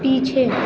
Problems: constant background noise